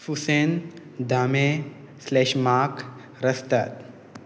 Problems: constant background noise